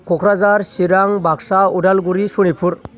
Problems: none marked